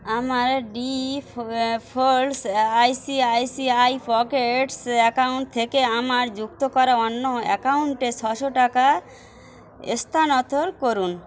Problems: constant background noise